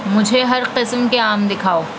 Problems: constant background noise